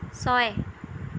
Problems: none marked